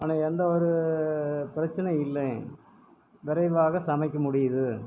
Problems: background sounds at intervals